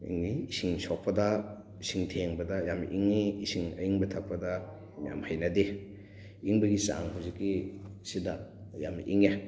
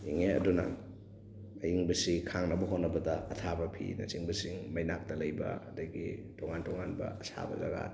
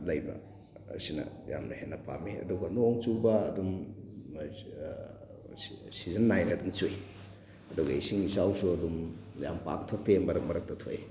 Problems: background sounds at intervals, background conversations at intervals